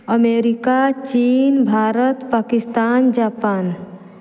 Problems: none marked